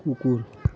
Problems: continuous background conversations